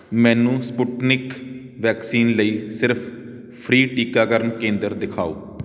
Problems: none marked